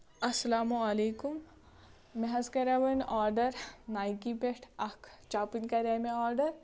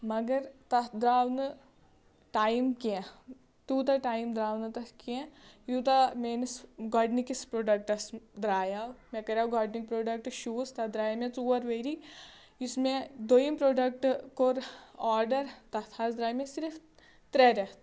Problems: none marked